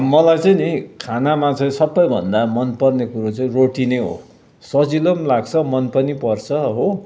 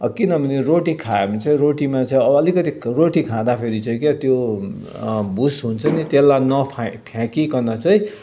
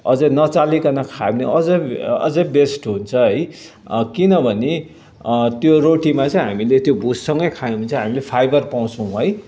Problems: none marked